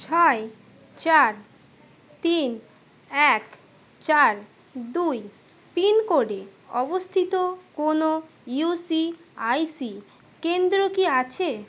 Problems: background sounds at intervals, background conversations at intervals